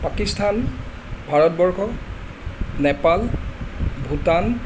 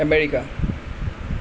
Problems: constant background noise